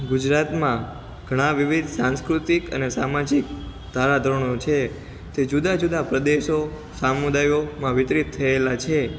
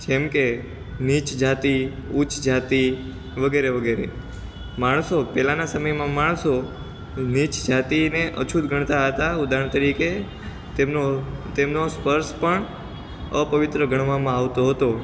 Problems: constant background noise